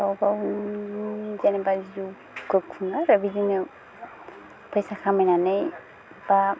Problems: constant background noise